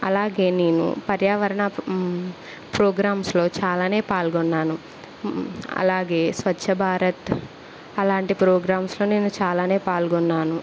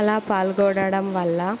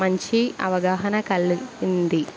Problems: constant background noise